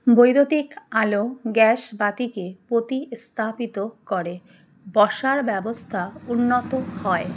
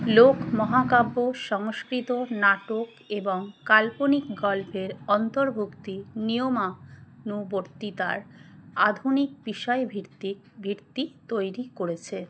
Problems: constant background noise